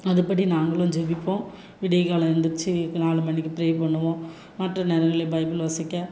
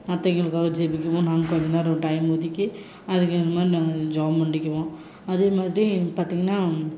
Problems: constant background noise